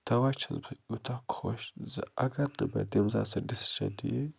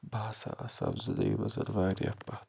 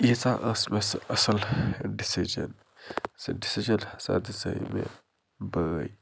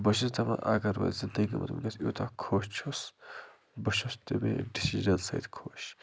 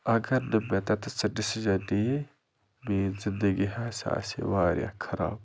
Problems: low volume